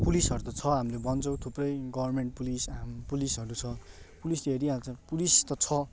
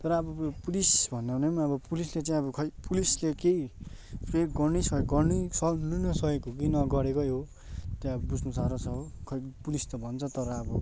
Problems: constant background noise, continuous background conversations